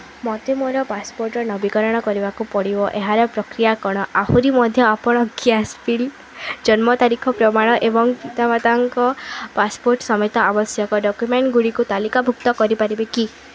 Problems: constant background noise